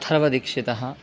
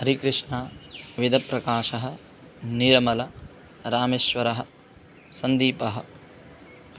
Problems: none marked